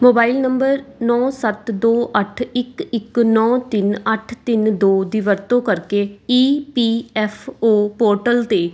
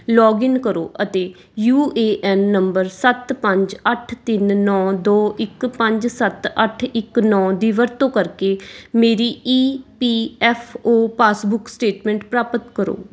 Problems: background sounds at intervals